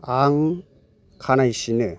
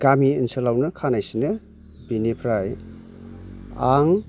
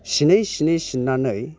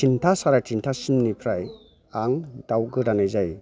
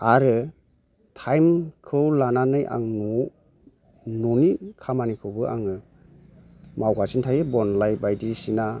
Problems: low volume